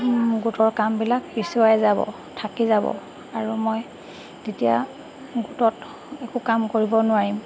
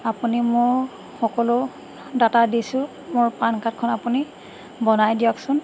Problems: constant background noise